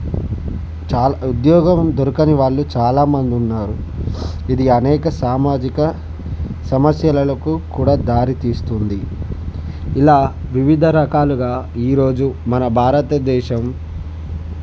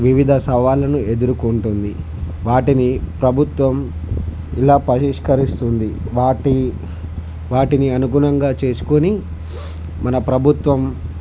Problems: constant background noise